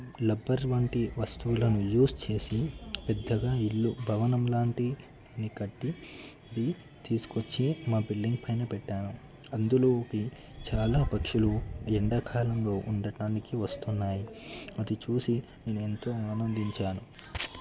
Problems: low volume